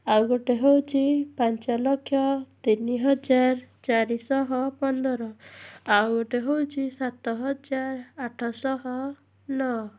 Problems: background sounds at intervals